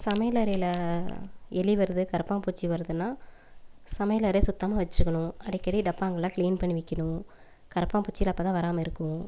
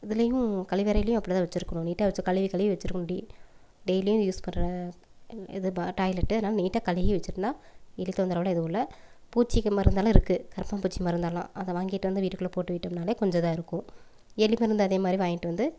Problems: none marked